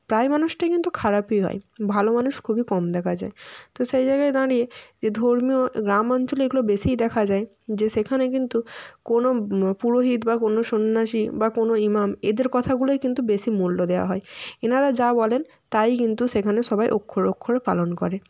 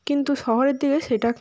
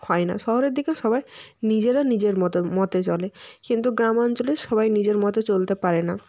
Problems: background sounds at intervals